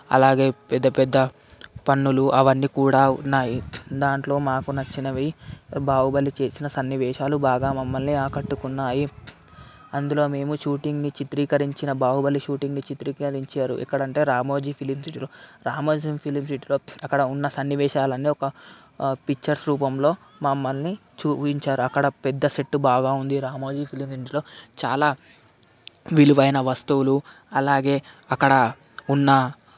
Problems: constant background noise